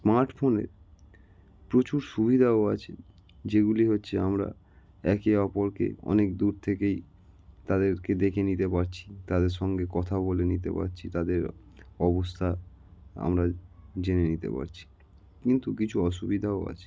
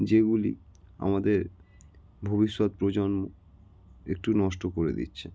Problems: none marked